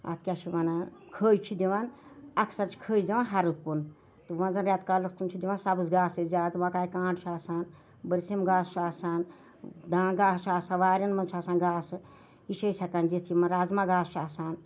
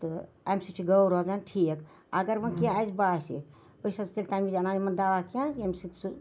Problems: none marked